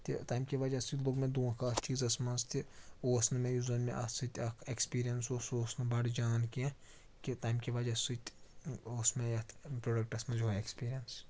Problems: constant background noise, background conversations at intervals